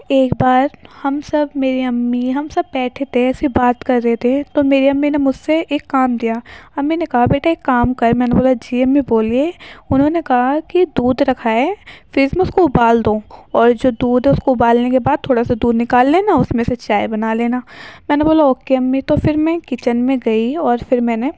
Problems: background sounds at intervals